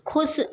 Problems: none marked